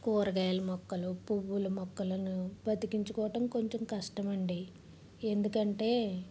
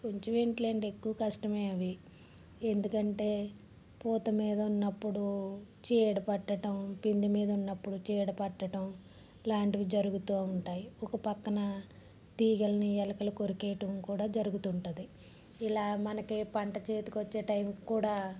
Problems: low volume